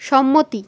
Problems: constant background noise